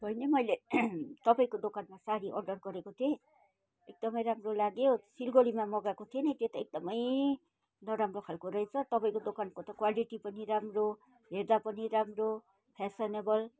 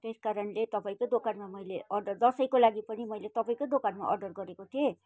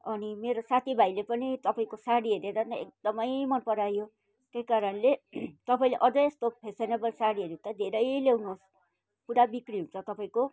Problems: background sounds at intervals